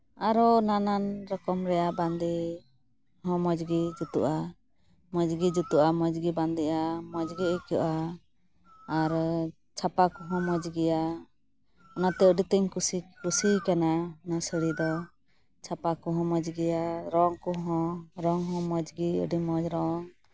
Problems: none marked